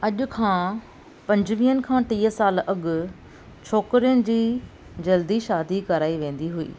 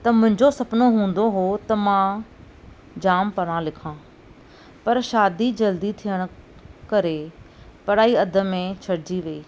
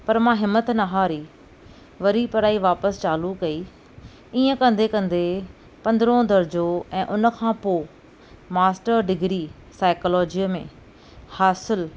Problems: none marked